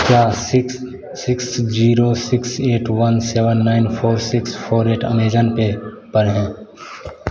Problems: constant background noise